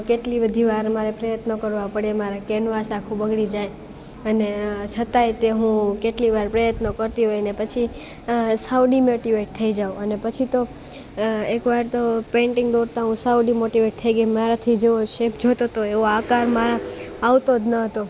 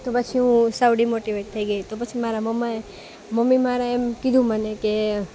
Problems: constant background noise